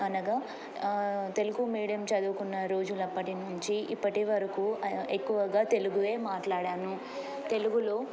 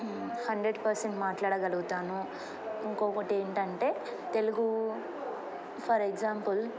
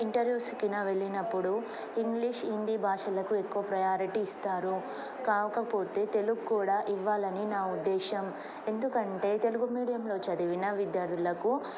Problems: none marked